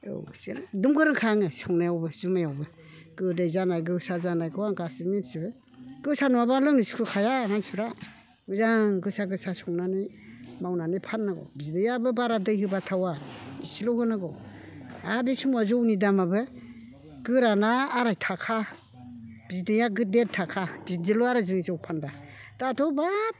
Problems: background conversations at intervals